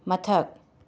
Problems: none marked